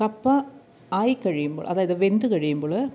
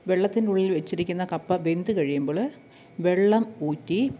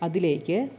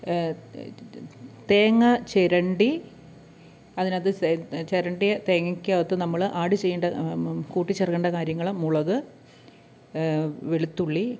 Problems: none marked